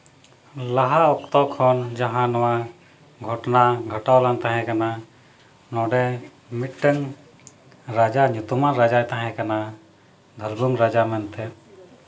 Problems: none marked